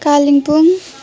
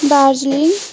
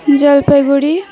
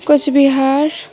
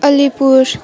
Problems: continuous background conversations